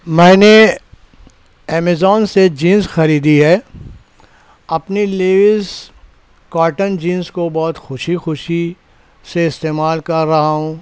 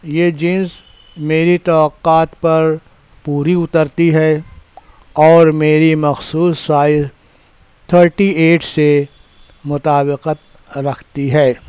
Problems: background sounds at intervals